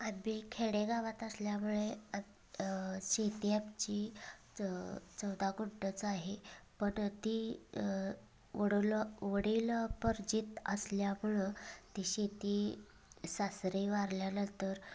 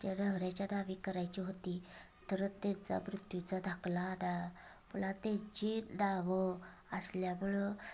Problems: constant background noise, continuous background conversations